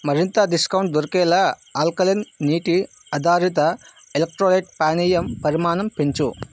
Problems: constant background noise